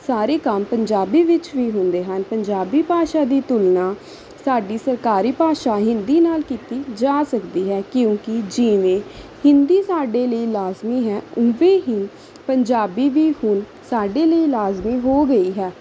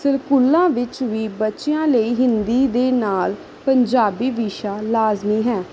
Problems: background sounds at intervals